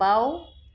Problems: background sounds at intervals